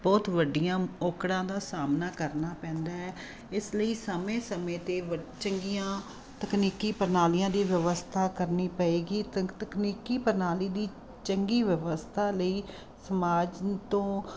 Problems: constant background noise